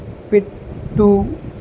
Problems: constant background noise